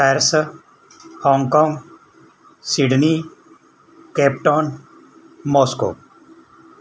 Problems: none marked